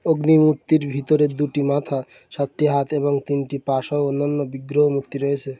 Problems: none marked